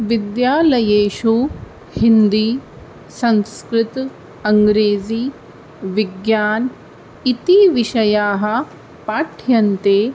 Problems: none marked